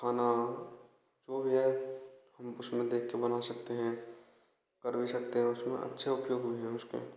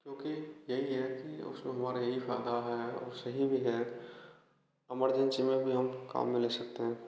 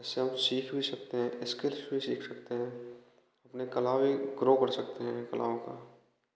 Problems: constant background noise